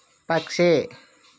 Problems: none marked